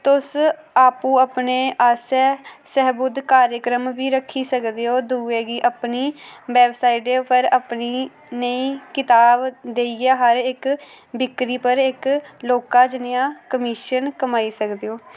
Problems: background sounds at intervals